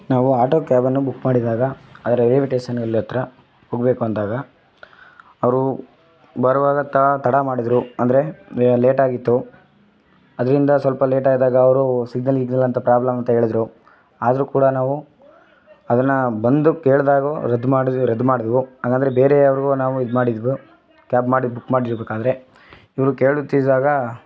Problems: background sounds at intervals